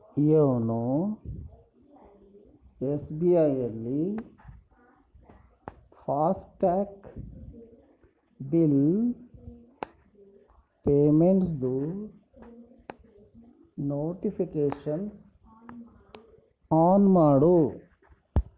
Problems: background conversations at intervals